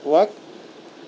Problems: constant background noise